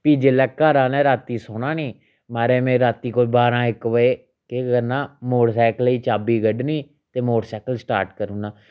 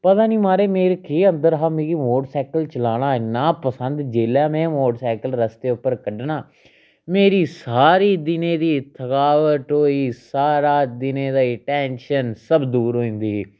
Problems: none marked